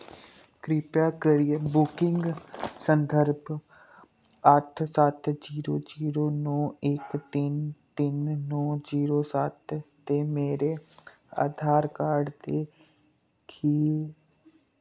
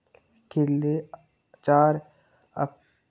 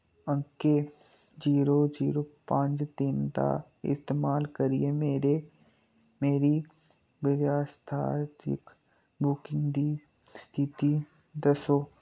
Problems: none marked